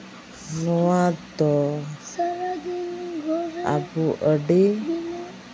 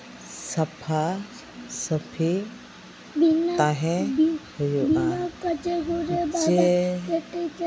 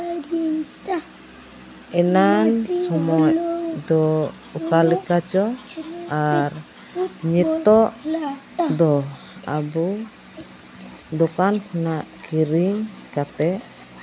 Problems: constant background noise, background conversations at intervals